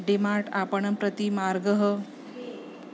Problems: background conversations at intervals